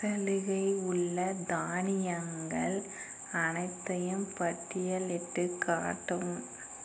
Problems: constant background noise